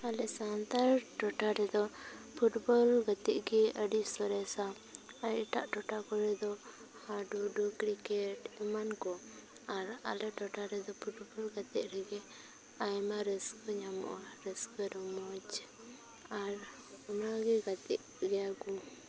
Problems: constant background noise, continuous background conversations